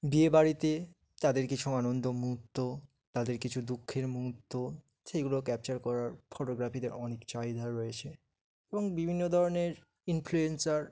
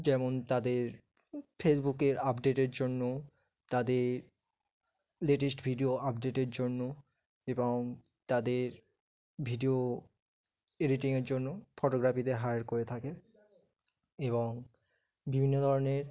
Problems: background sounds at intervals, background conversations at intervals